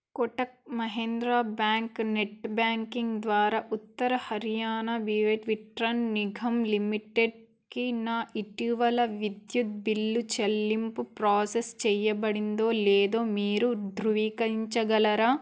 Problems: background sounds at intervals